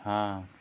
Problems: constant background noise